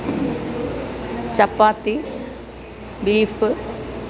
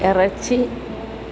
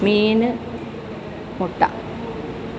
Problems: constant background noise